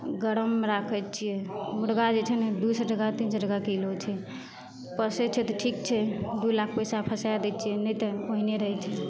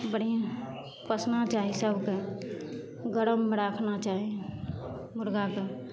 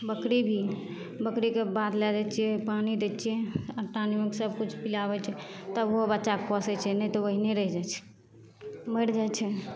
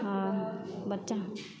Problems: none marked